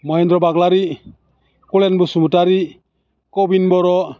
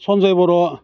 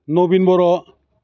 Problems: low volume